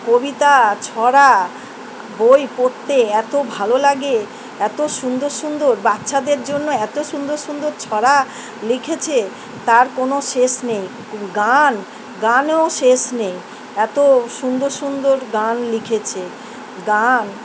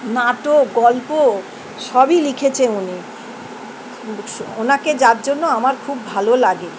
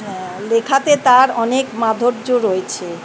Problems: constant background noise